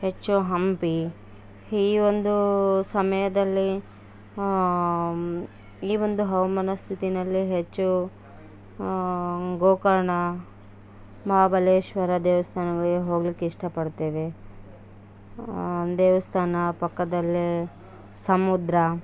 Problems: background sounds at intervals